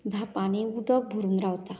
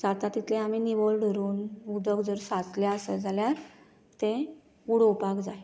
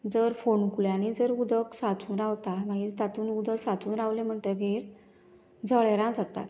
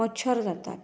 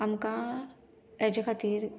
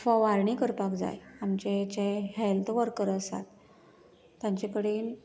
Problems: background sounds at intervals